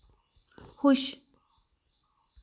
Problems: low volume